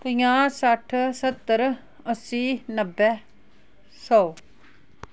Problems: background sounds at intervals